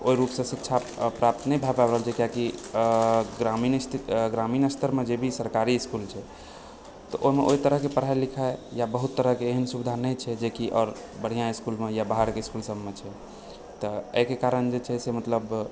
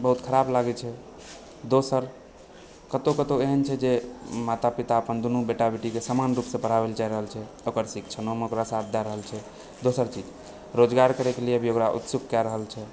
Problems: background sounds at intervals, background conversations at intervals